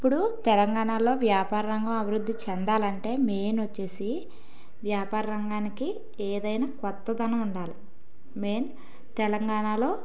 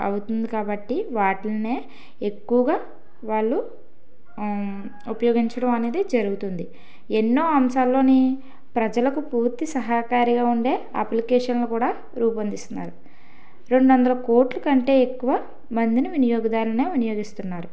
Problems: background sounds at intervals